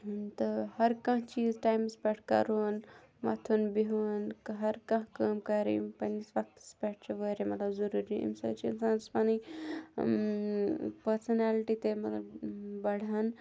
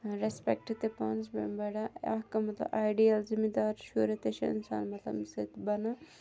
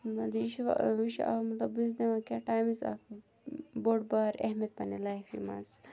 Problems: none marked